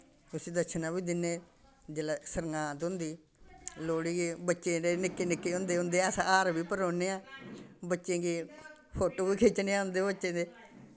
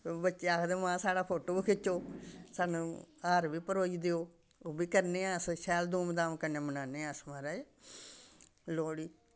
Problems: constant background noise, background conversations at intervals